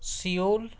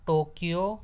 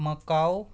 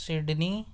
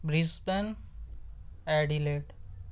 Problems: none marked